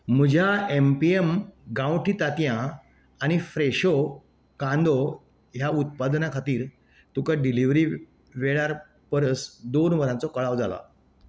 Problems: background sounds at intervals